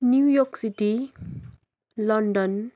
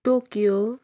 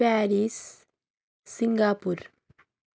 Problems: none marked